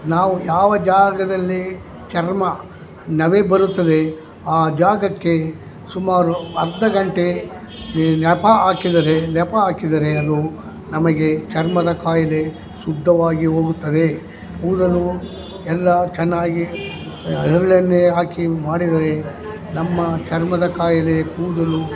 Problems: background sounds at intervals